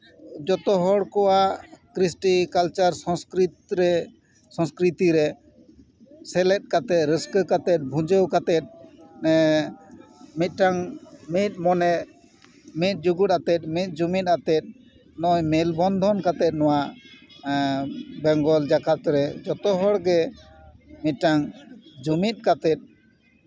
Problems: none marked